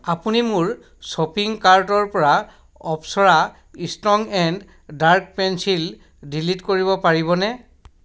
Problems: none marked